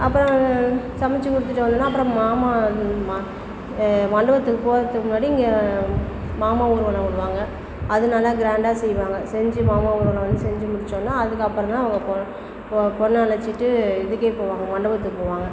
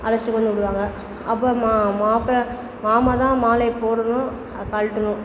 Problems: constant background noise, background conversations at intervals